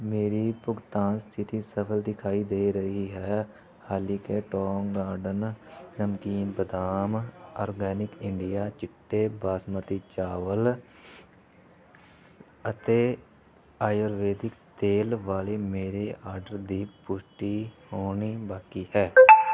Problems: background sounds at intervals